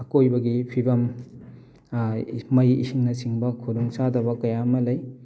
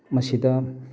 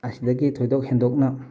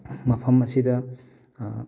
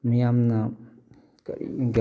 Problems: background sounds at intervals